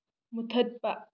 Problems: low volume